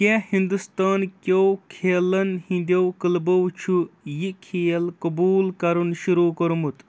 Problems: background sounds at intervals